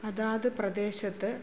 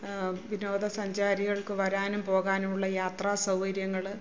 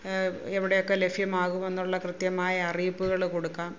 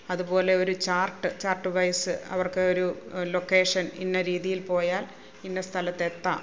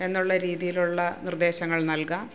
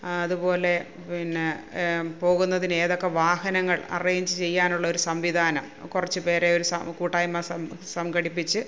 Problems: none marked